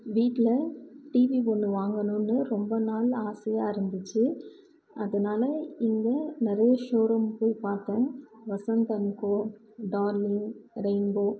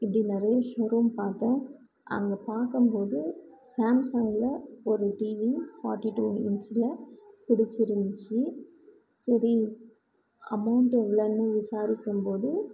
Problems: low volume